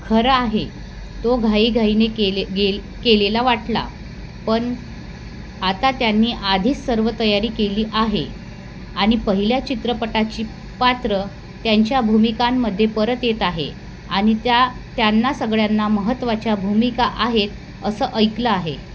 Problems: constant background noise